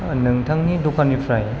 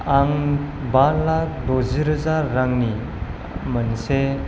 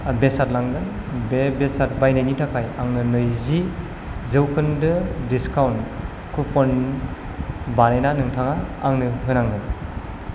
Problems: none marked